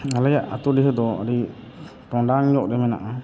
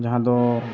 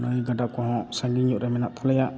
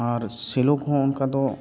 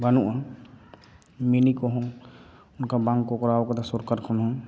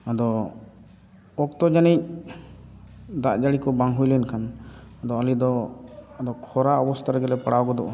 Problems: none marked